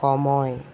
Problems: constant background noise